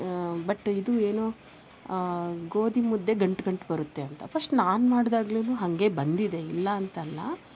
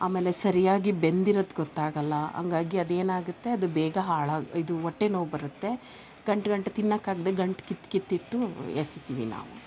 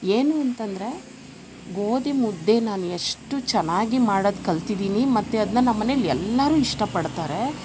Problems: none marked